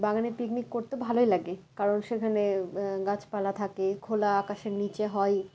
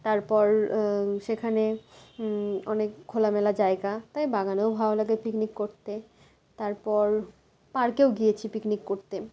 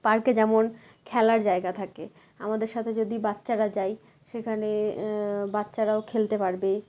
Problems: constant background noise